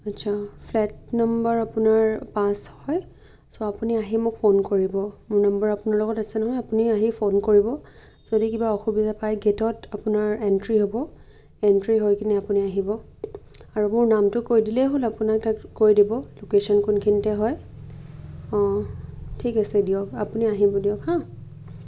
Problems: background sounds at intervals